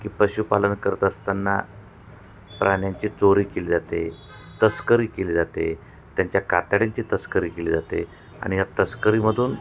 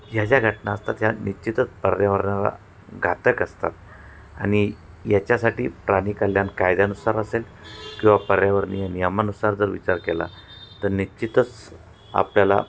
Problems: none marked